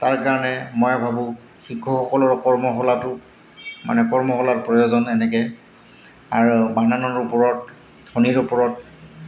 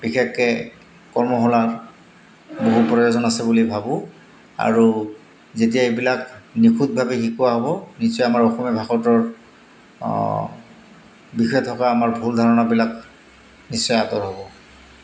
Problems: constant background noise